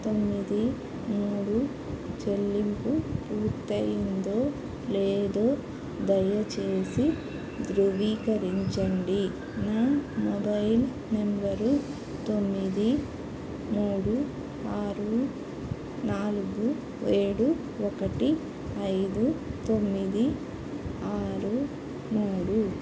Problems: constant background noise